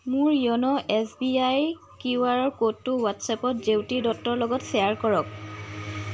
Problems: constant background noise